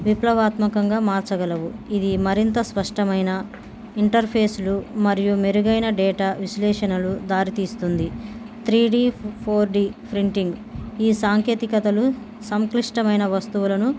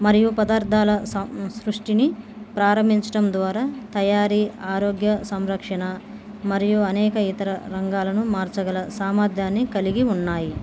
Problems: background sounds at intervals